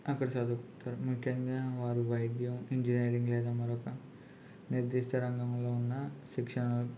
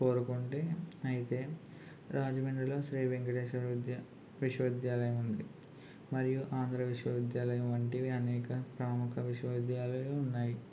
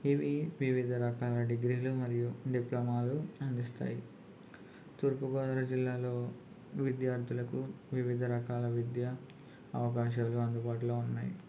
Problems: constant background noise, low volume